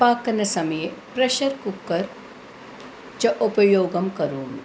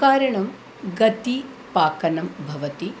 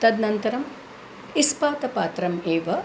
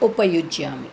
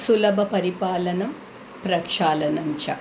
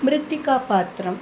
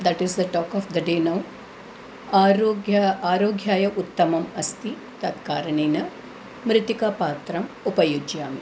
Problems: constant background noise